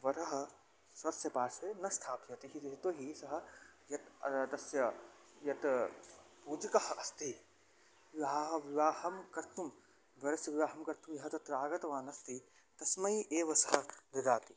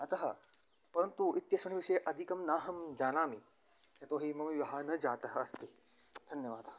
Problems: background sounds at intervals